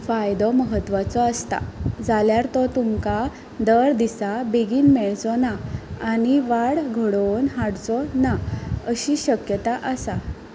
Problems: background sounds at intervals